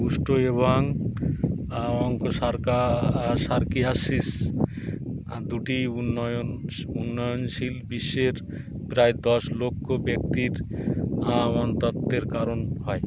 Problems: constant background noise